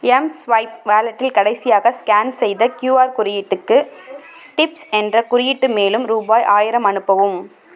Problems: background sounds at intervals